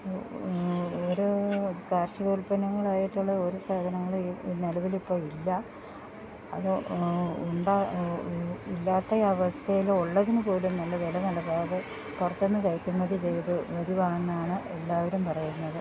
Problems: background sounds at intervals, low volume